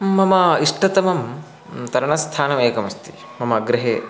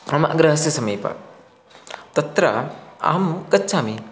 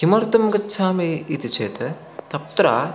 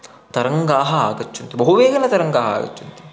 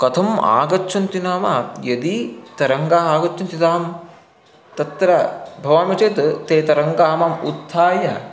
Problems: constant background noise, continuous background conversations